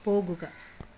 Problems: low volume